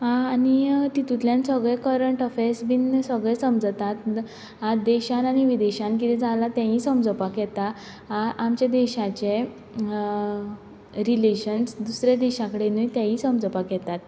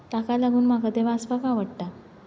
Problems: background sounds at intervals